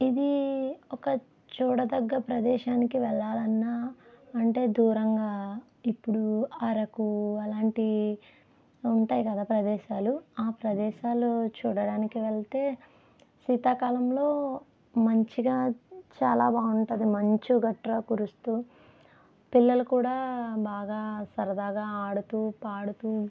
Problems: none marked